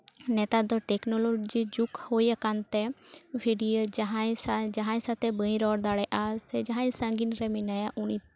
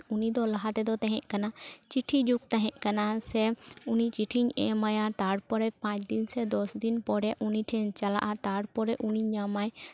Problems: constant background noise, continuous background conversations